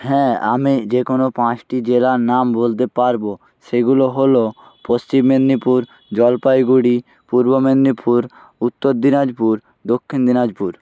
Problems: background sounds at intervals